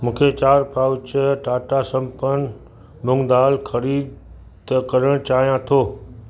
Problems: constant background noise